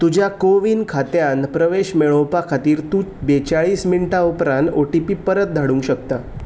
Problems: background sounds at intervals